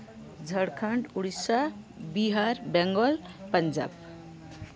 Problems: none marked